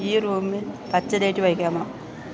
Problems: constant background noise